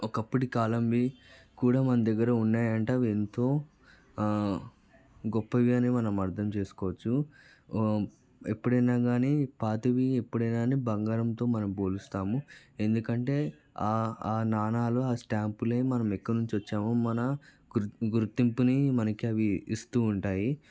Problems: background conversations at intervals, low volume